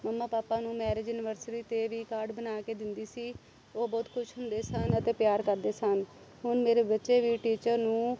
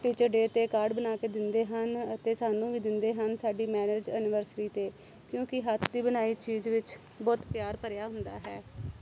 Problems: constant background noise